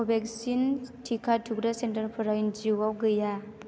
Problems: constant background noise